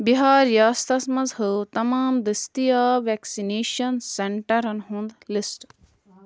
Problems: constant background noise